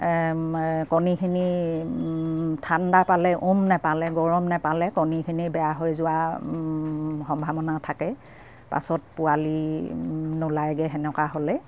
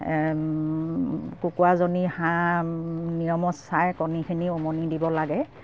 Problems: none marked